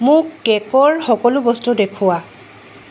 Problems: constant background noise